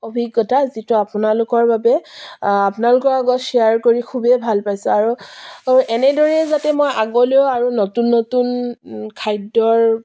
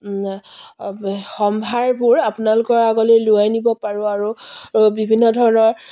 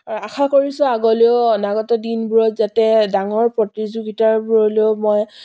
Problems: none marked